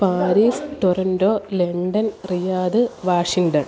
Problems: constant background noise